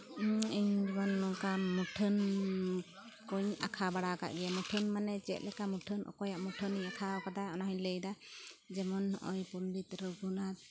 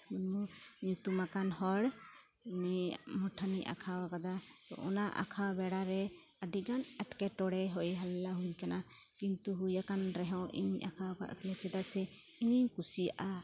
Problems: constant background noise